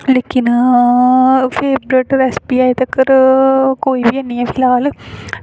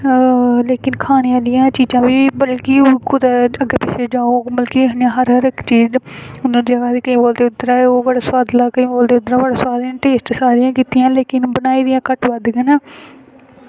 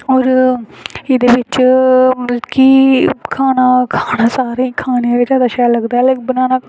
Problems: constant background noise